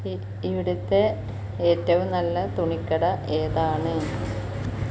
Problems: none marked